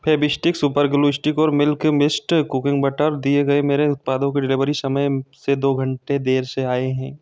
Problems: background sounds at intervals